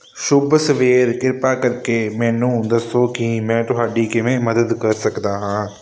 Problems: constant background noise